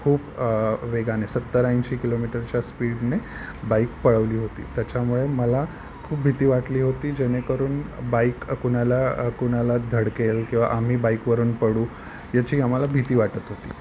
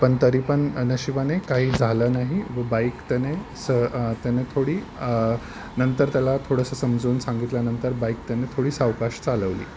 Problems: none marked